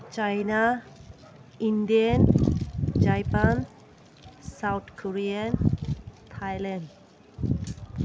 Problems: constant background noise